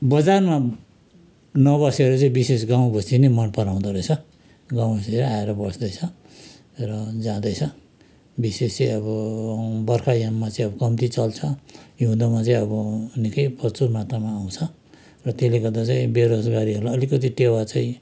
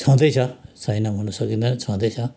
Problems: background conversations at intervals